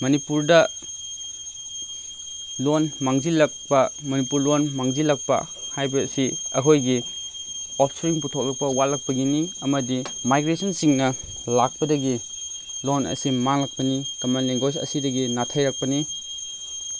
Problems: constant background noise, background conversations at intervals